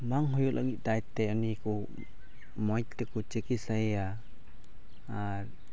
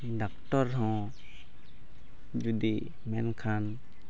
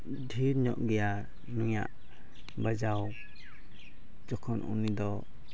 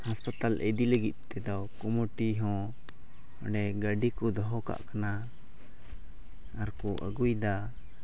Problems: background sounds at intervals, low volume